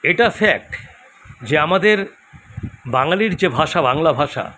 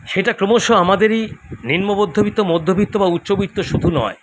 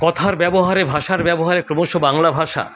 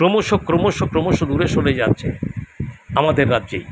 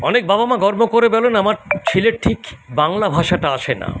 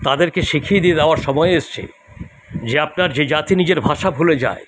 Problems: constant background noise